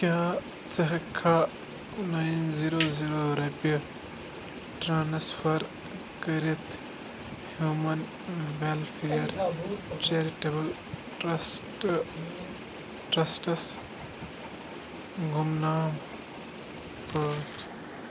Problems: constant background noise